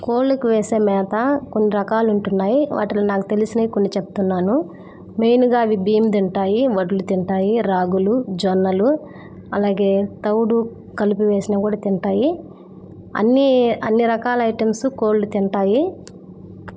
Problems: none marked